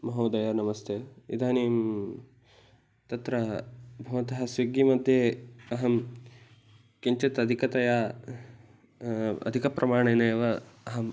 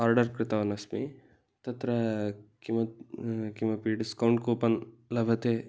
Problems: background conversations at intervals